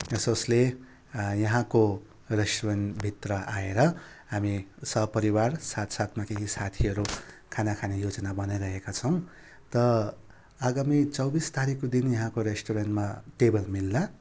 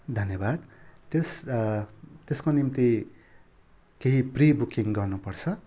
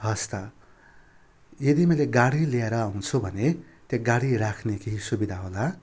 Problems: constant background noise